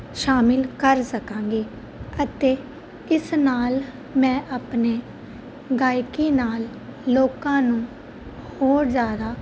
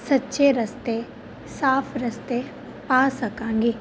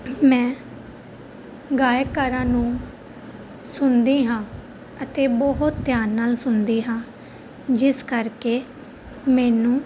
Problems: constant background noise